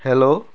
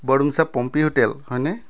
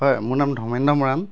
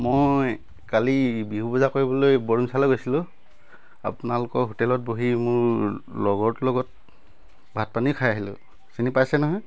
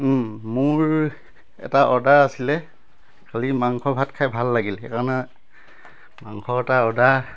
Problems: none marked